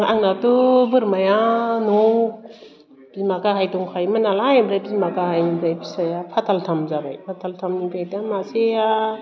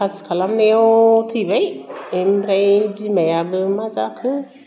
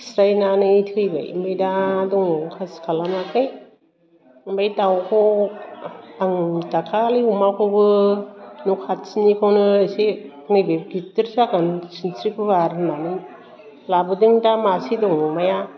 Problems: constant background noise